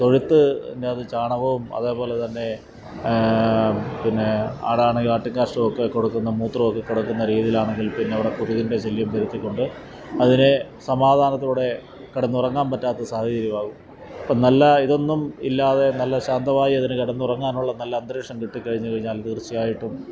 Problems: background sounds at intervals